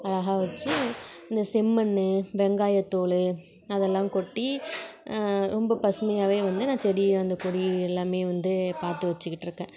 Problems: background sounds at intervals